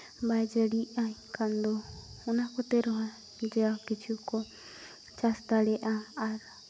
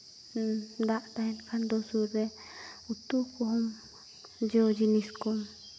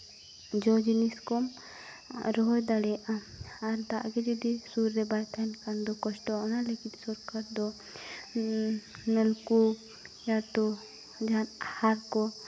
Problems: none marked